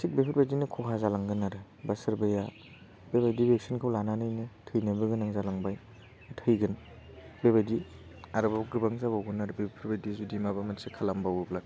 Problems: constant background noise